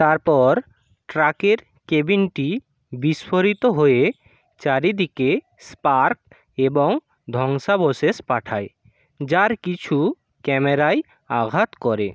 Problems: none marked